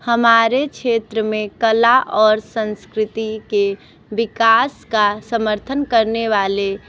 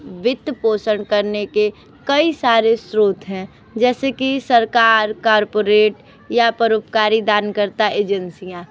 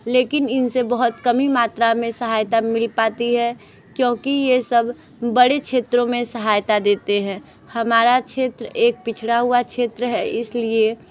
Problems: background sounds at intervals, background conversations at intervals